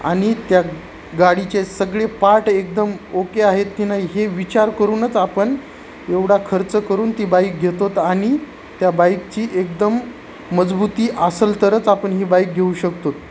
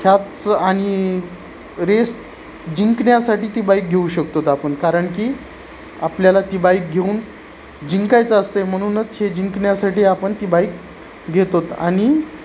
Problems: constant background noise